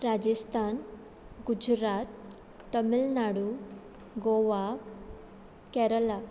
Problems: none marked